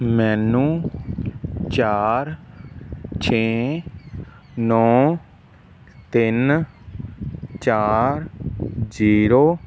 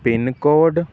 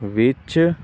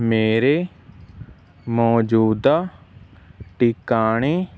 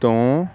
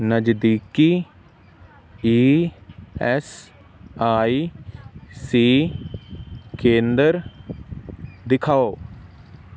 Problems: background sounds at intervals